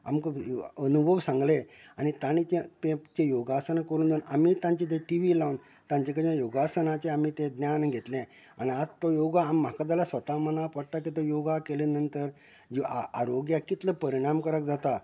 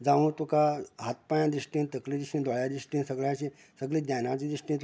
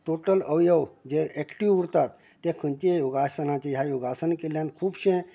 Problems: constant background noise